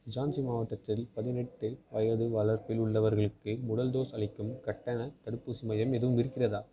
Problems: continuous background conversations